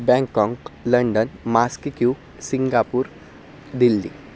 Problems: none marked